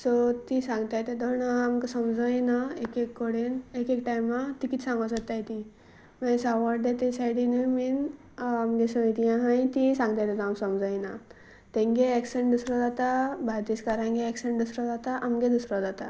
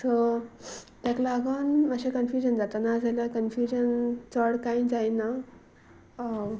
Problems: constant background noise